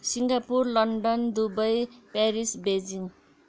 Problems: background conversations at intervals